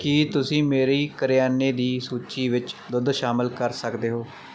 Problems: background sounds at intervals